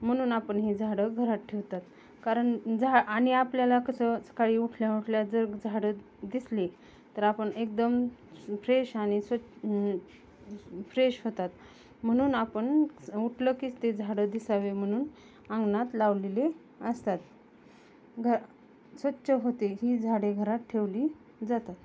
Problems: none marked